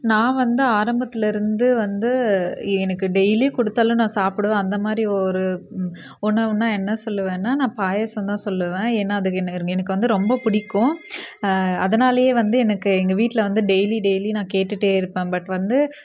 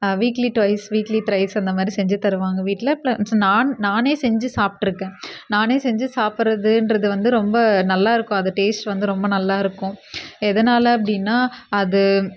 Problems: none marked